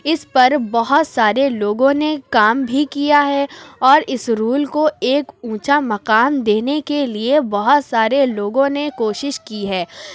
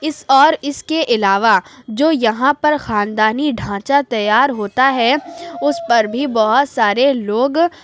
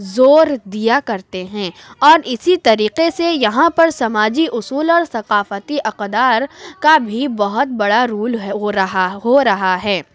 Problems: none marked